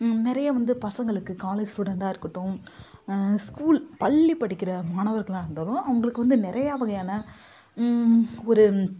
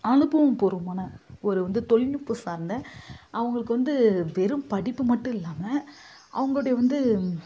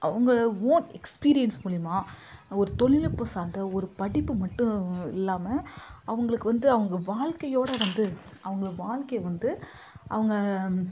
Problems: constant background noise